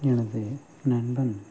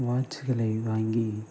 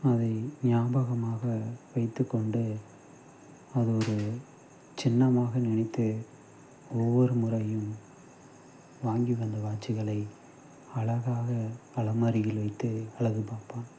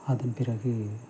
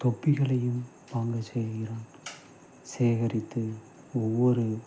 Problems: constant background noise, low volume